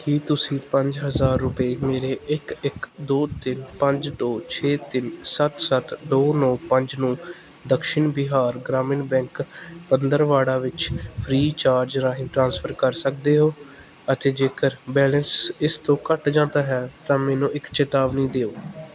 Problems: constant background noise